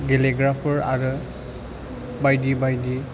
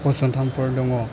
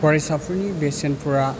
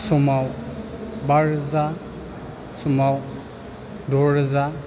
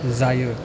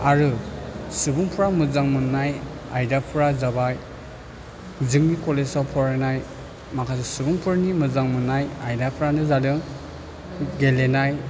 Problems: constant background noise